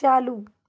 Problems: background sounds at intervals